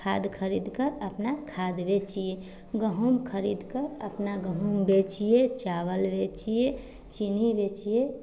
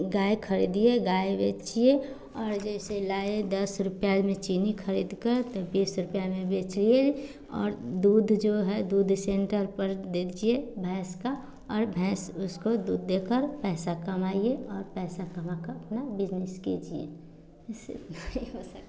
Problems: none marked